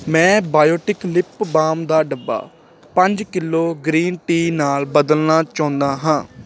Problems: constant background noise